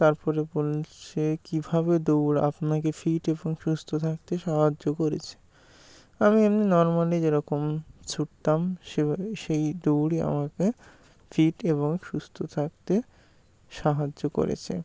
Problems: constant background noise